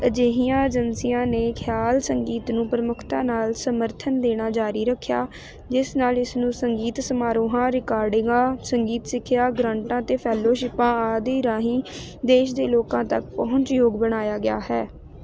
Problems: none marked